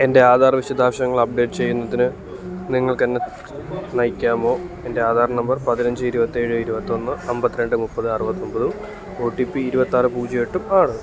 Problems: constant background noise